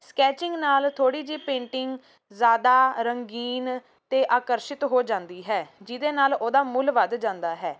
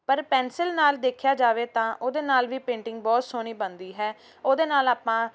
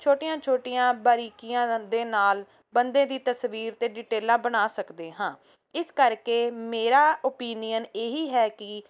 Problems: background sounds at intervals